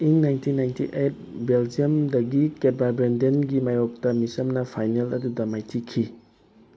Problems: constant background noise